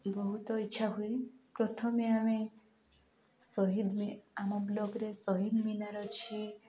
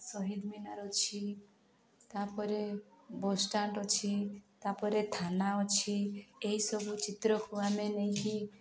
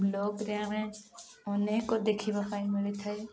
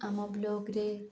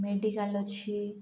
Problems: continuous background conversations